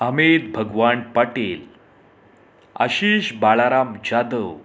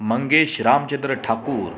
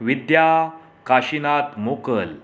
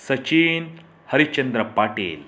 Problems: none marked